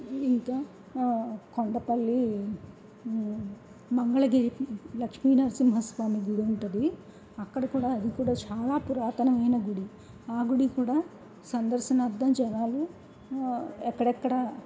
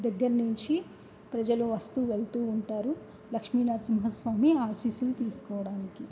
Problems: background sounds at intervals, low volume